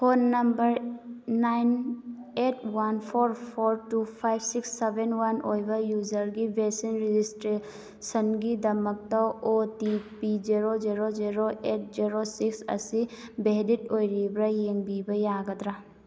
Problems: none marked